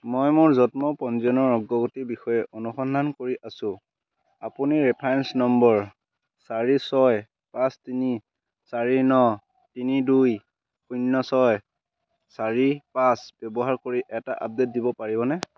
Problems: constant background noise